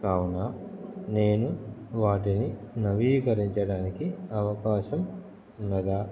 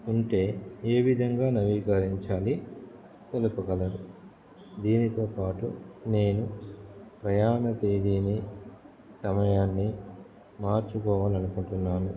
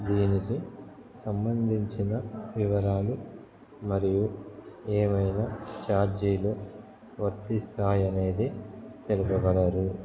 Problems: background conversations at intervals